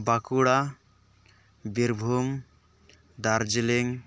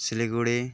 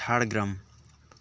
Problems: background conversations at intervals